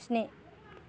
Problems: background sounds at intervals